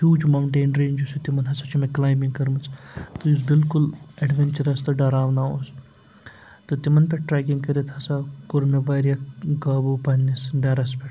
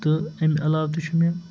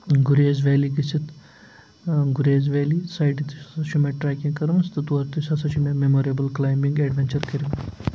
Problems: background sounds at intervals, low volume